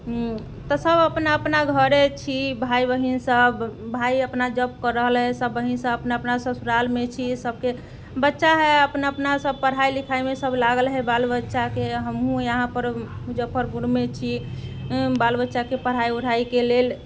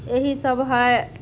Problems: background sounds at intervals